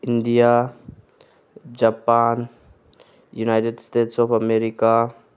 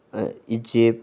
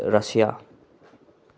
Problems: background sounds at intervals